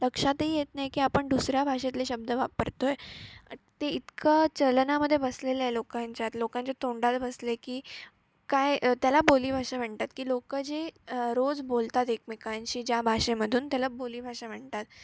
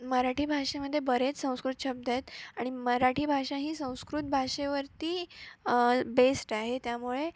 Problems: background sounds at intervals